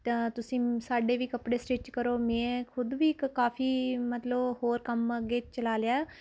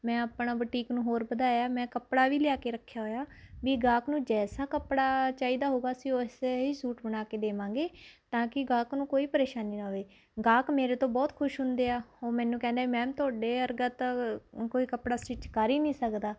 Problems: constant background noise